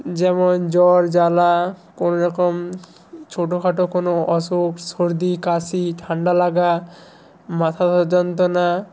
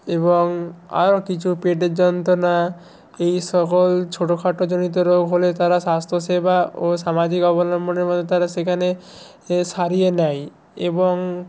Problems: none marked